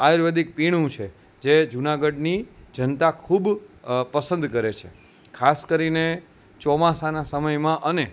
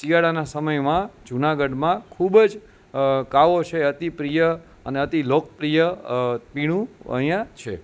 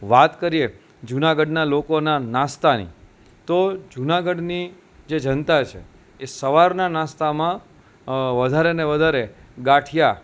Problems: constant background noise